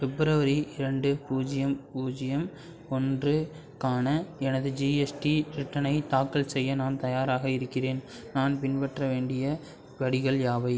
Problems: background sounds at intervals